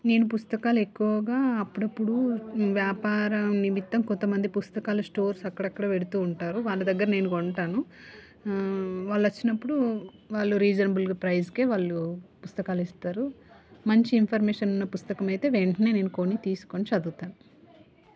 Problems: constant background noise